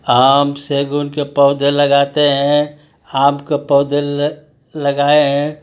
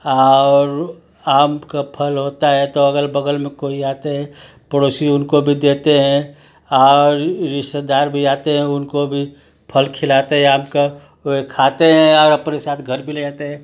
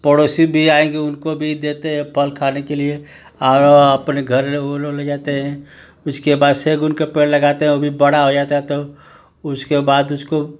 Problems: constant background noise